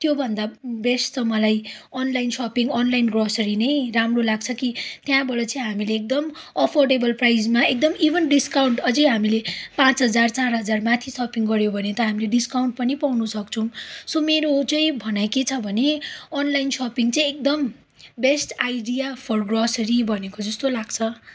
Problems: background sounds at intervals